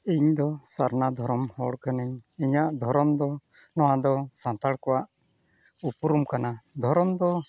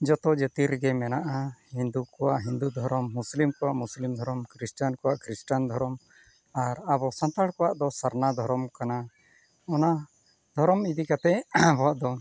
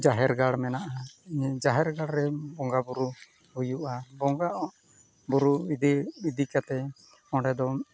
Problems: constant background noise